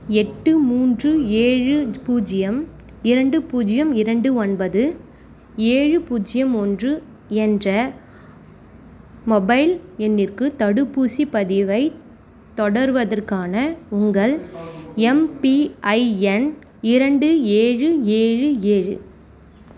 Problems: background conversations at intervals